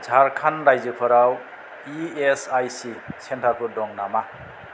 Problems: none marked